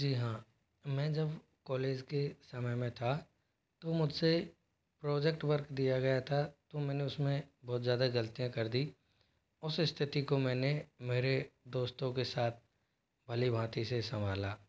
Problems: constant background noise, low volume